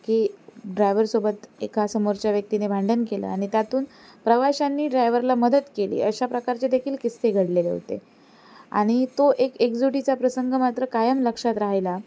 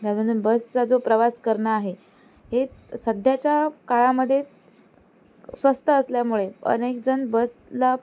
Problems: none marked